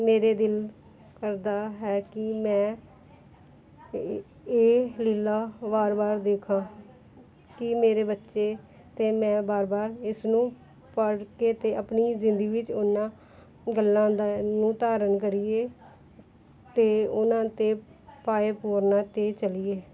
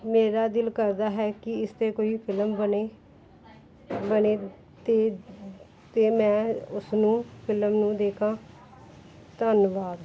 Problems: background sounds at intervals, background conversations at intervals